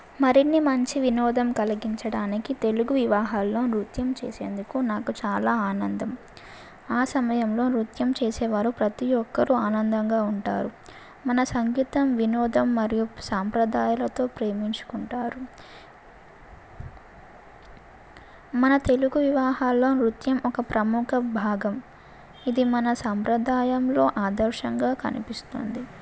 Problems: none marked